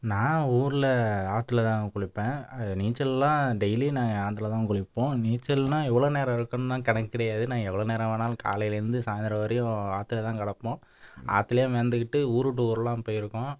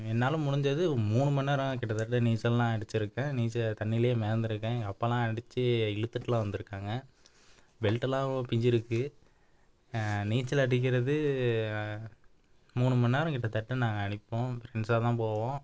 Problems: none marked